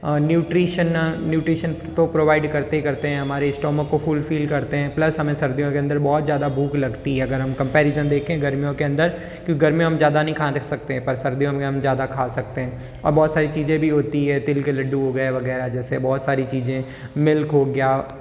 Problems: background sounds at intervals, echo